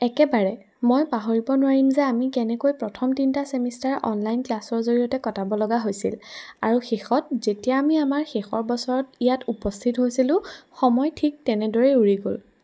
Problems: background sounds at intervals